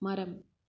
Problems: none marked